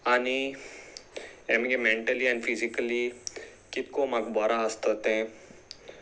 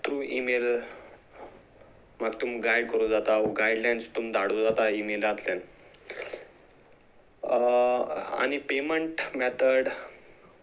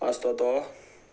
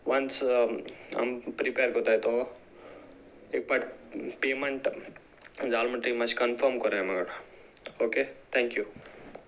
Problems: none marked